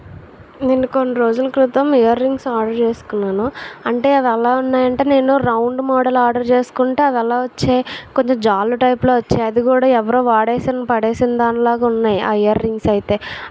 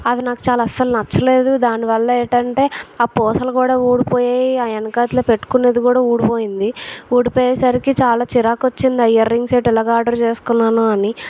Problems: constant background noise